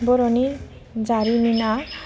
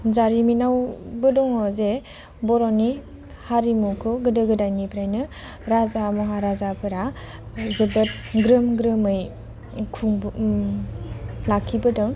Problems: low volume